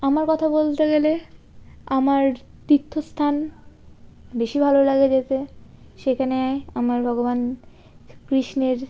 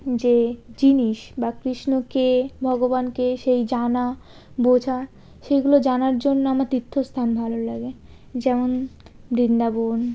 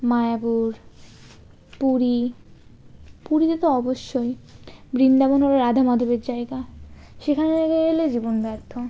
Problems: none marked